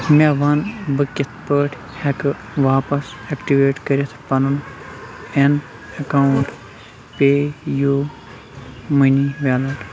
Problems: constant background noise, background conversations at intervals